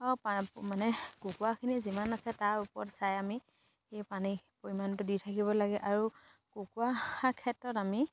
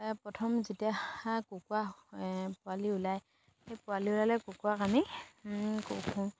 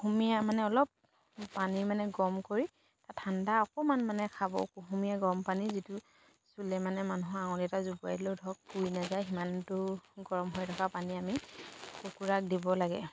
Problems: background sounds at intervals